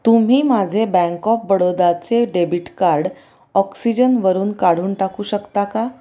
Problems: none marked